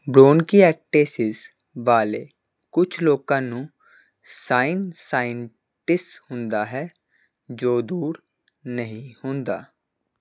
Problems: constant background noise